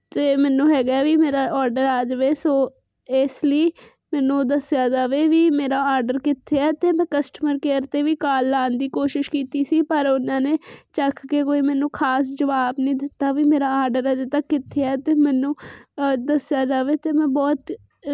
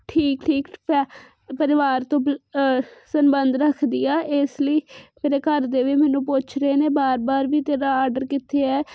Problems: constant background noise